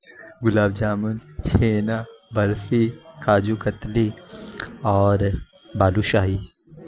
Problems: constant background noise